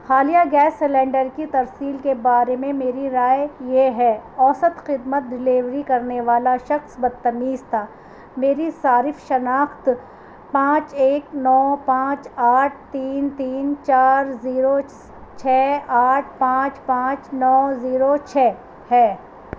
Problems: constant background noise